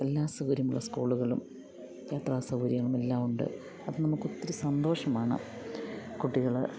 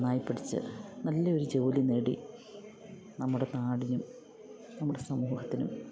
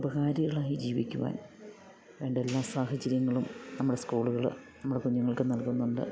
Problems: background sounds at intervals